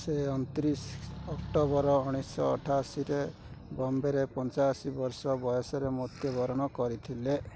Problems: constant background noise, continuous background conversations